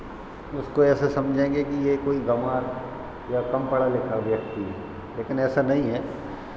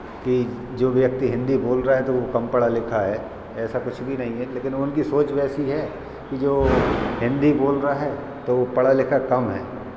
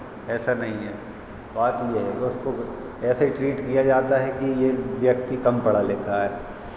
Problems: constant background noise